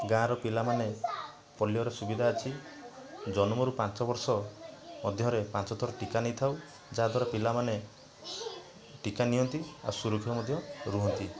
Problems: constant background noise, continuous background conversations